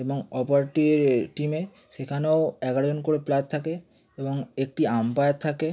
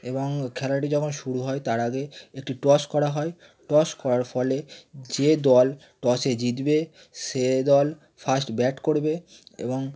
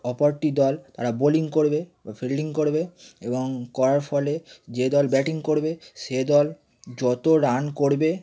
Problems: none marked